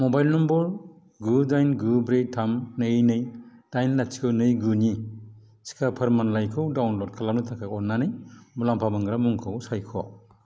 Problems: none marked